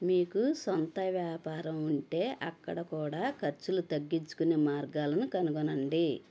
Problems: none marked